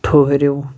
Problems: none marked